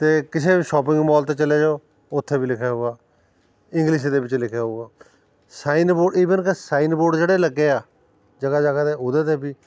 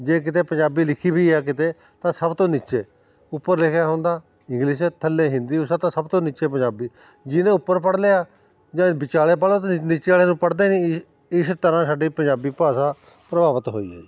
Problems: background sounds at intervals